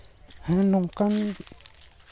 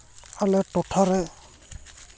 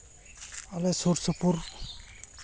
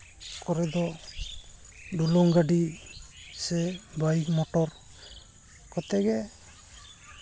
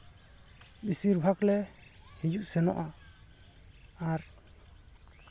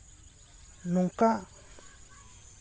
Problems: constant background noise